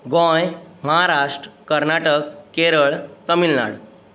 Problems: constant background noise